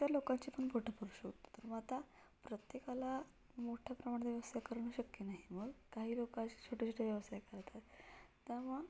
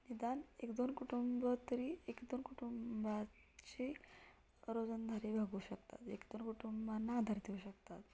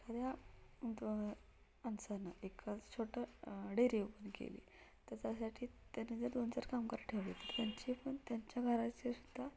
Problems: low volume